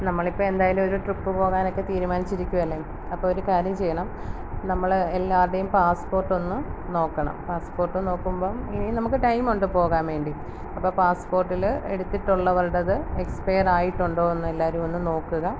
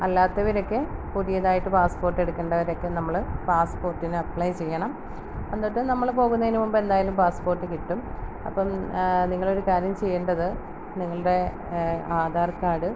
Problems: background sounds at intervals